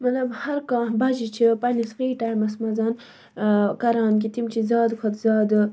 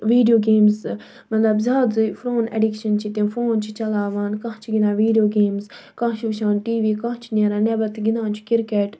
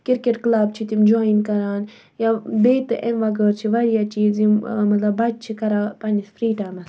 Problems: background sounds at intervals